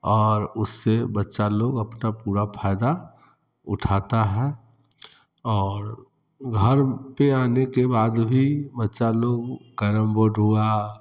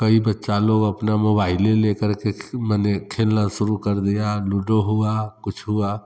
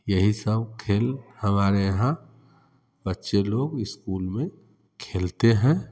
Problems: constant background noise